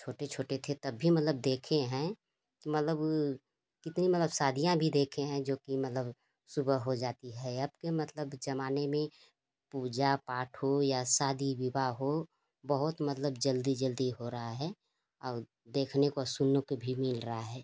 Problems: constant background noise